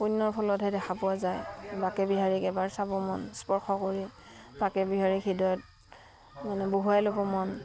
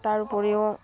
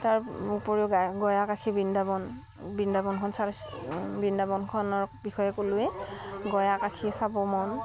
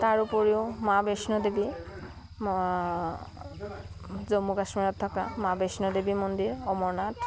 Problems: background sounds at intervals